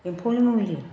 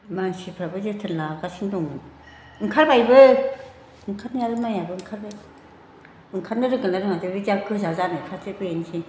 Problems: constant background noise